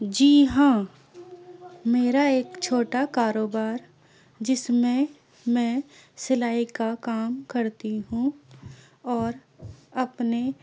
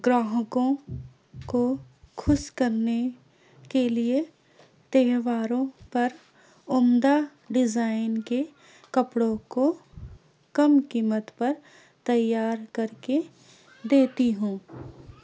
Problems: constant background noise